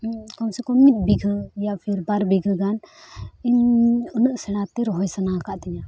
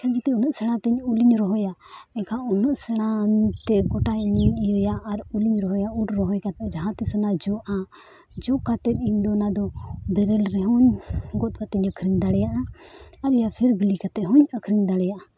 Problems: background sounds at intervals